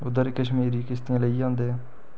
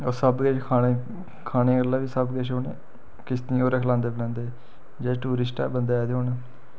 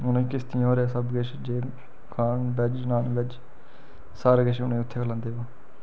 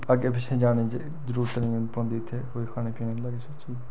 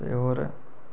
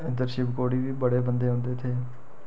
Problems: none marked